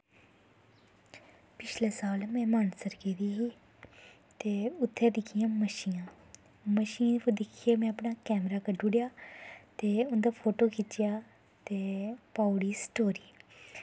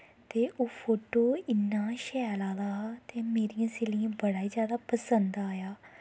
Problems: constant background noise